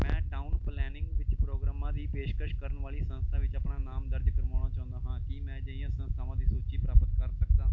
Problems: background sounds at intervals